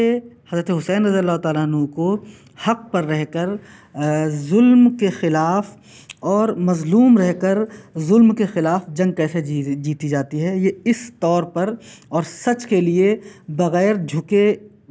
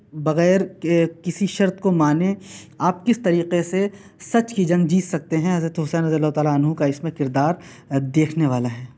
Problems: none marked